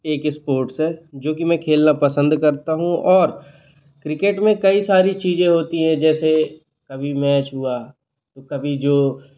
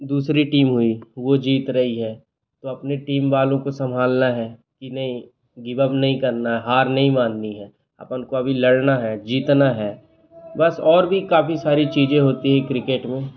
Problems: constant background noise, background conversations at intervals